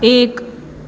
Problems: none marked